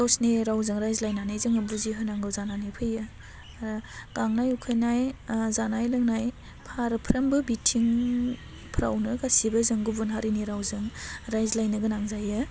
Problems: constant background noise